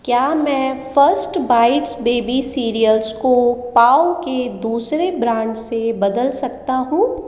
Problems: constant background noise, echo